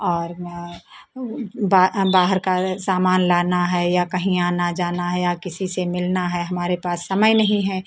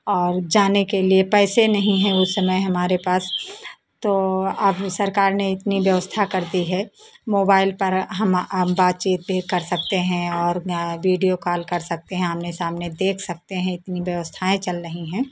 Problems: constant background noise